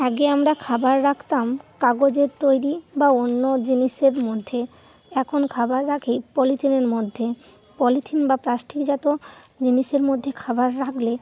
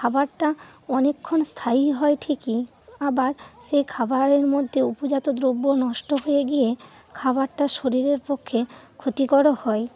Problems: constant background noise